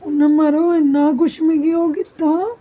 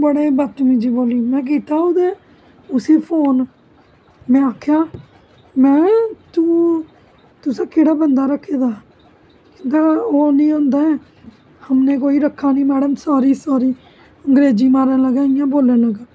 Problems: constant background noise